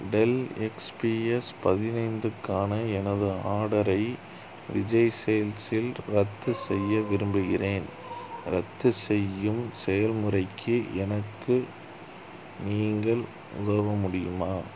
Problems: none marked